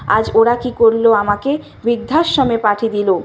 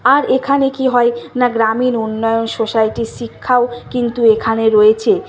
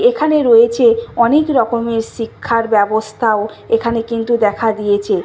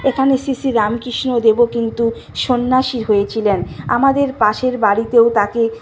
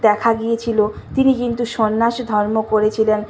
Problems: continuous background conversations